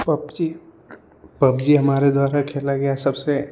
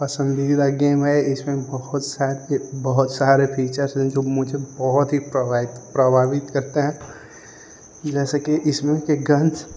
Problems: none marked